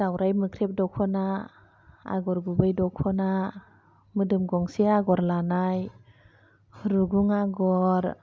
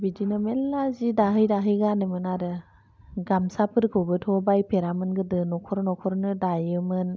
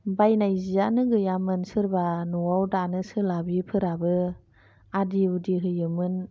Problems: none marked